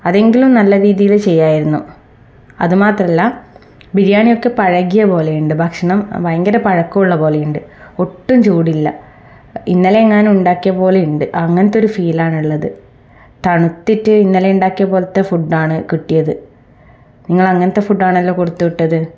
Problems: none marked